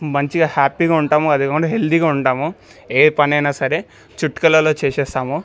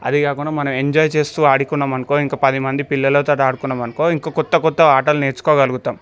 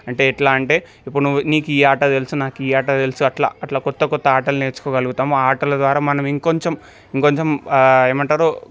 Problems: none marked